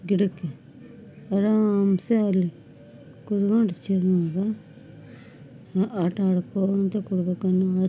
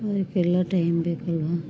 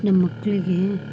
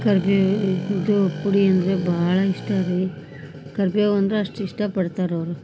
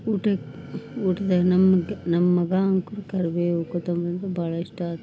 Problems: none marked